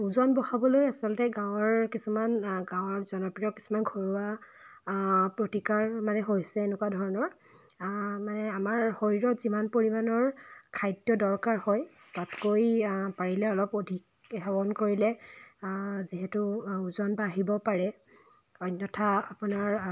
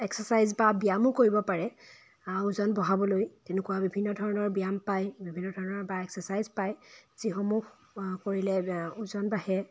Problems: background sounds at intervals